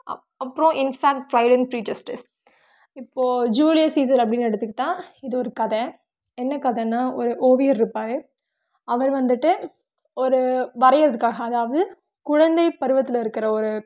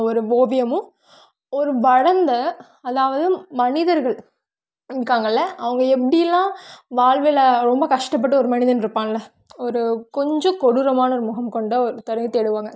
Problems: none marked